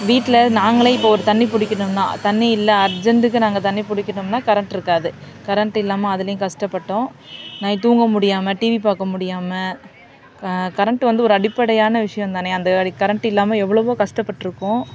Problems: constant background noise